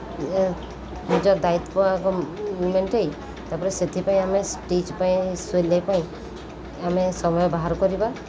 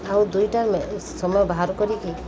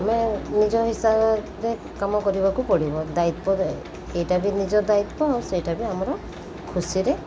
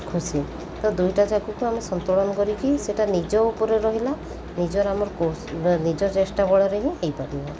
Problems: constant background noise